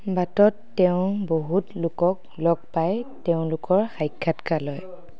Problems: background conversations at intervals